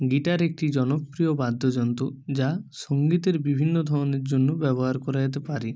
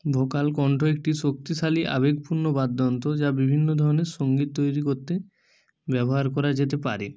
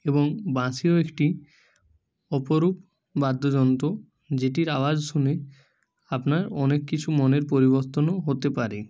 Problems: none marked